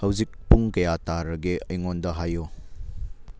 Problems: low volume